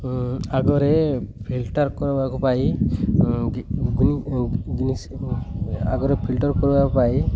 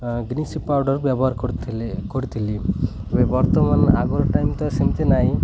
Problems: constant background noise